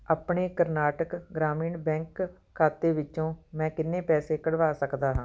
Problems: background sounds at intervals